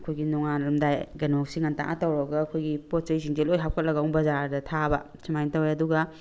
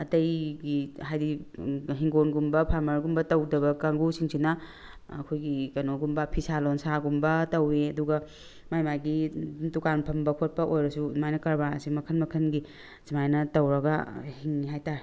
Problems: none marked